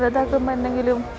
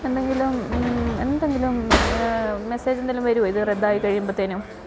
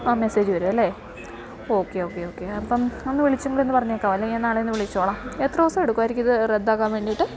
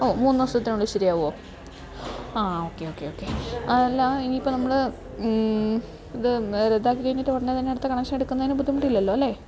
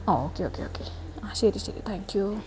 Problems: none marked